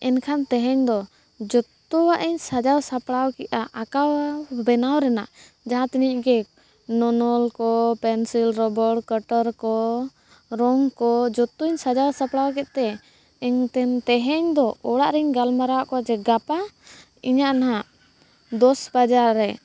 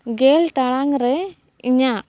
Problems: background sounds at intervals